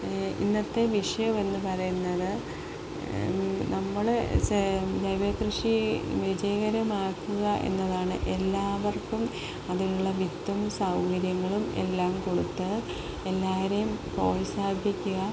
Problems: none marked